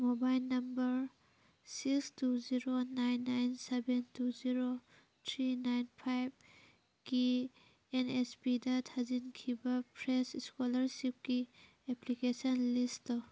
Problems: background sounds at intervals, background conversations at intervals